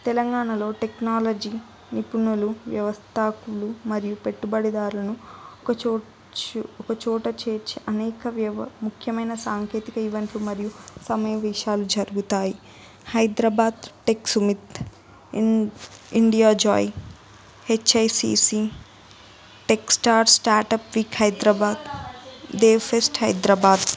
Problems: background sounds at intervals, continuous background conversations